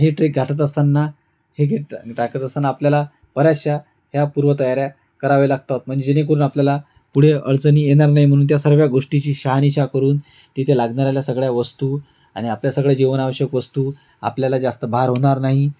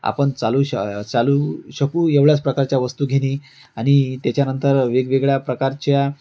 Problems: constant background noise